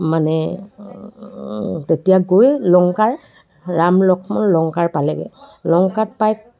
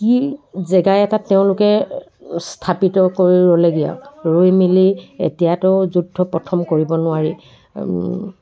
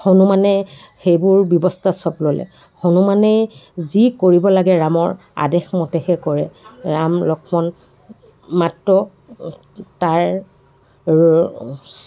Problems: background sounds at intervals, background conversations at intervals